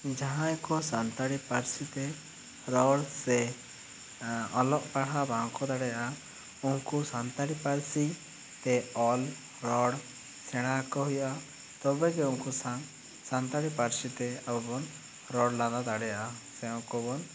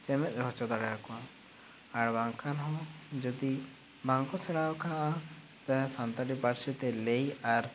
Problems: constant background noise